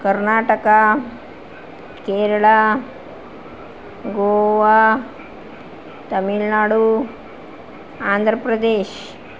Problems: constant background noise